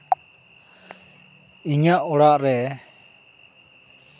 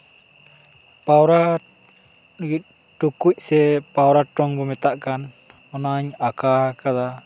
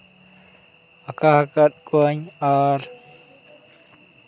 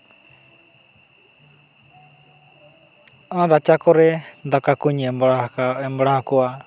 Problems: none marked